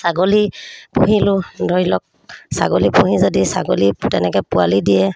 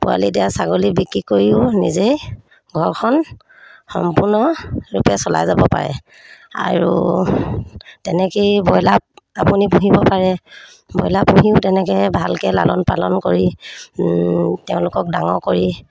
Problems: none marked